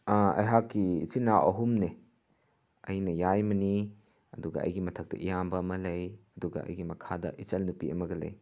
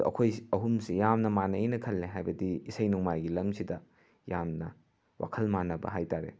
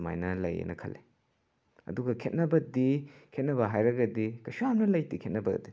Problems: none marked